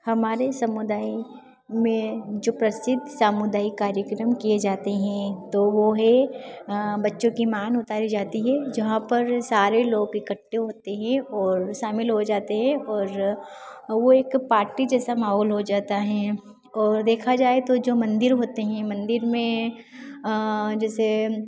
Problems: background sounds at intervals